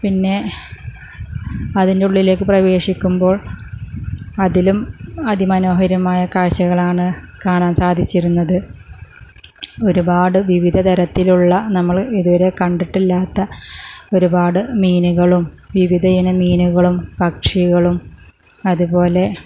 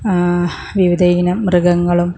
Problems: none marked